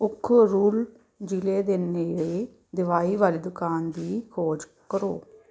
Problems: background sounds at intervals